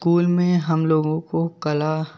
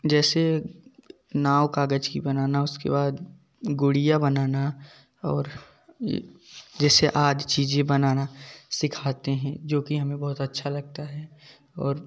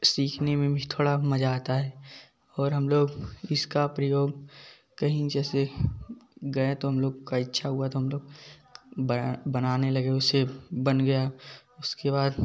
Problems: background sounds at intervals, background conversations at intervals